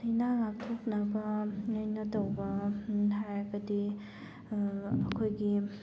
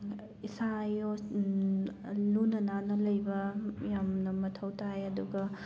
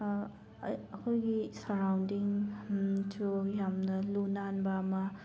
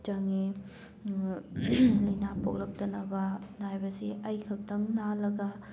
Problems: background sounds at intervals